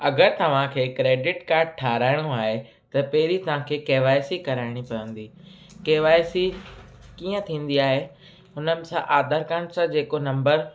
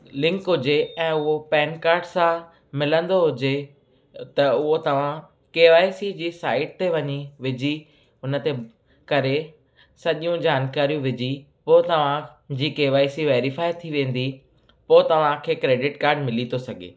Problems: constant background noise, echo